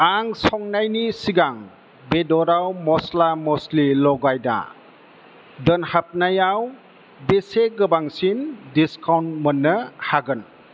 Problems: constant background noise